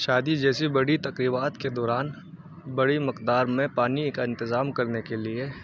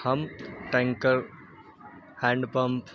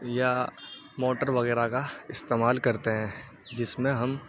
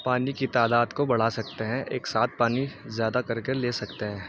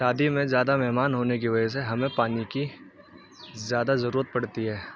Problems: background sounds at intervals, low volume